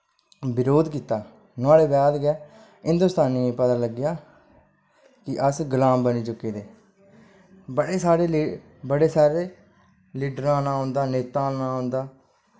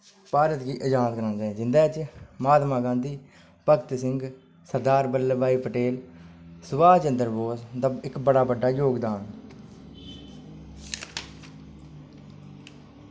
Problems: constant background noise